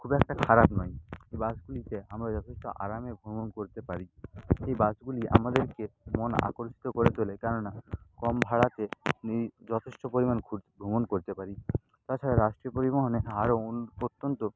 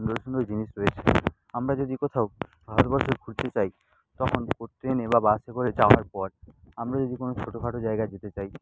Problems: constant background noise, low volume